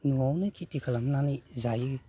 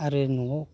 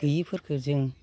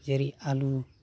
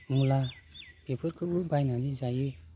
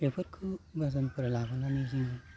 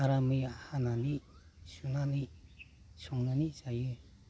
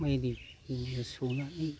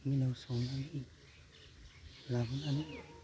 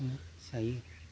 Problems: constant background noise